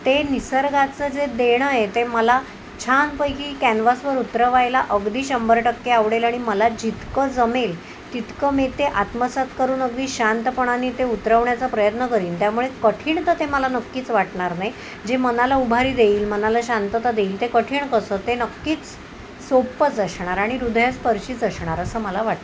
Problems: constant background noise